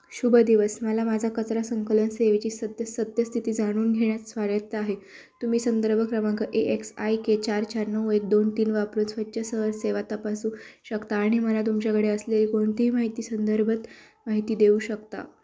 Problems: background sounds at intervals, background conversations at intervals